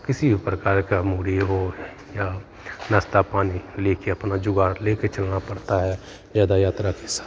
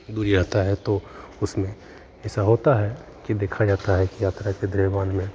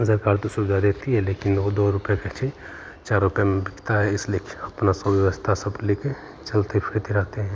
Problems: constant background noise